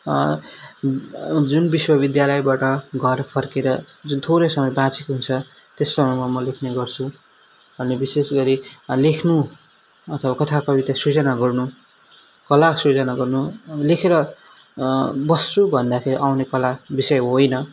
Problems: background sounds at intervals